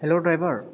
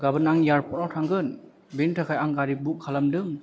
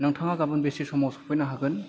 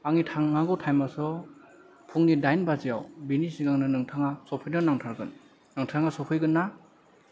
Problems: none marked